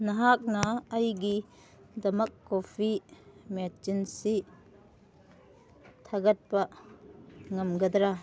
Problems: background sounds at intervals